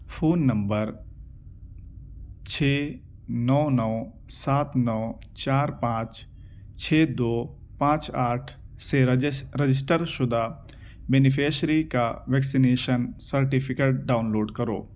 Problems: constant background noise